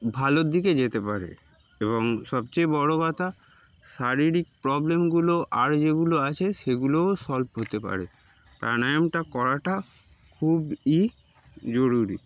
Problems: background sounds at intervals